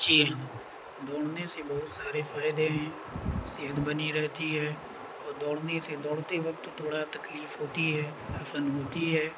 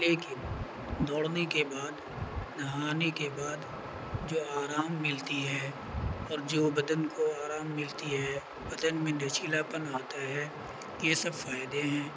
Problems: constant background noise